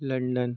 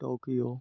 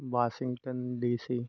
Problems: constant background noise